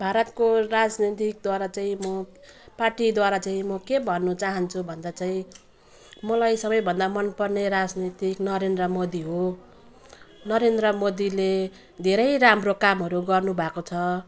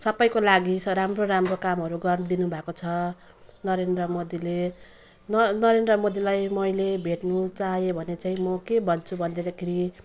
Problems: background sounds at intervals